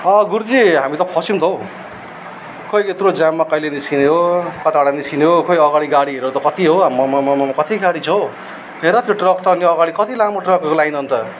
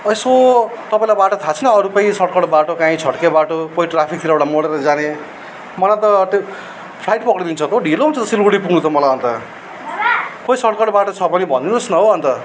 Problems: none marked